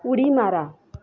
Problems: background sounds at intervals, background conversations at intervals